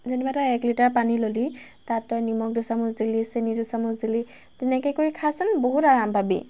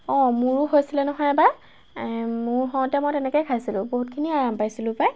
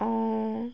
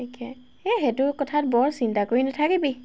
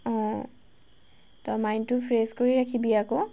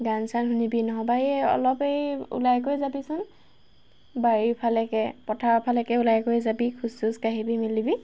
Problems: constant background noise